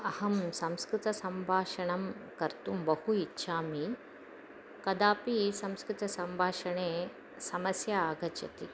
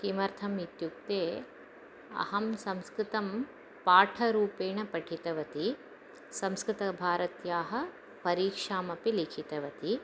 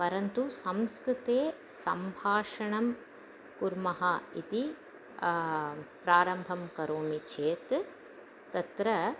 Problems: constant background noise